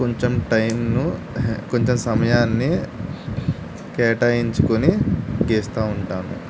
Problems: constant background noise